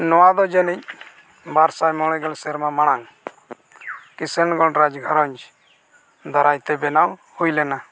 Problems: none marked